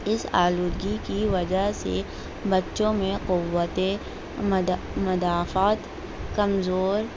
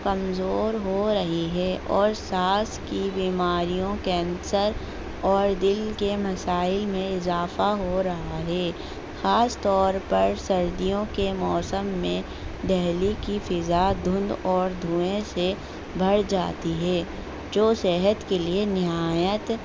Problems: constant background noise